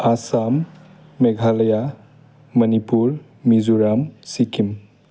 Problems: low volume